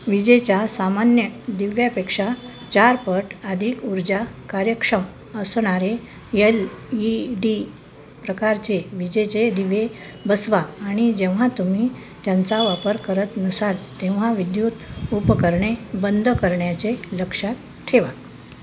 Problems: constant background noise